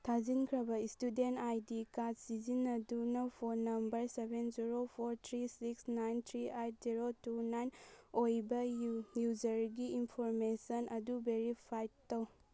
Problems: none marked